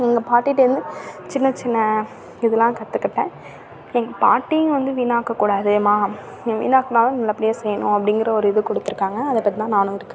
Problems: constant background noise, background conversations at intervals